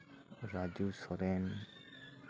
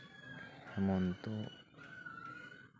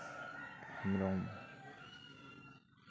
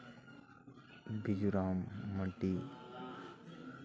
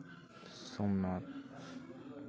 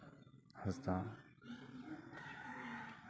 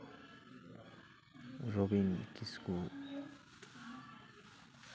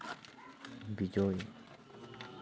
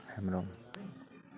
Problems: none marked